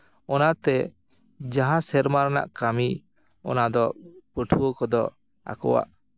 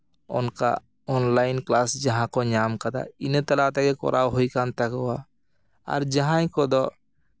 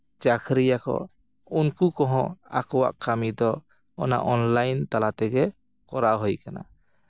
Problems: background sounds at intervals